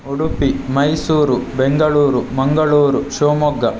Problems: constant background noise